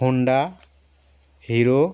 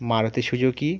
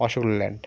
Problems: background sounds at intervals